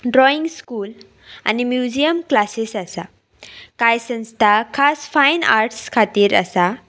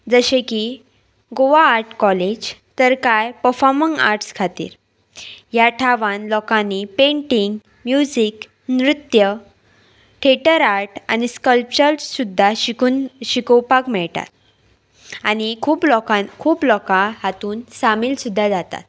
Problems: background sounds at intervals